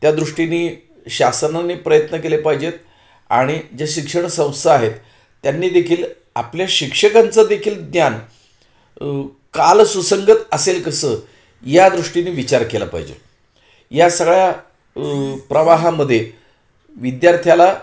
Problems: background sounds at intervals, echo